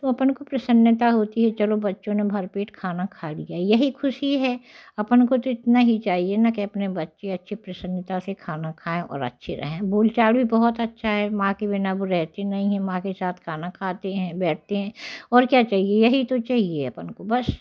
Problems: constant background noise